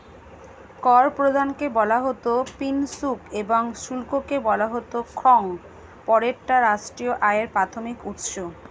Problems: constant background noise